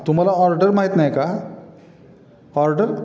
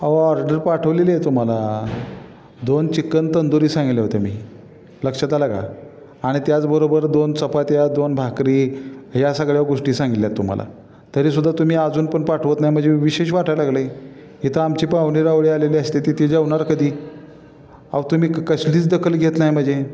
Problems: constant background noise, echo